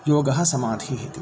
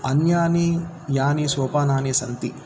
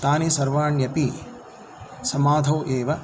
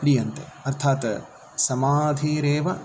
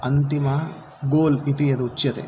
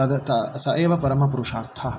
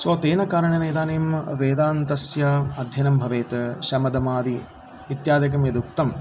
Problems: continuous background conversations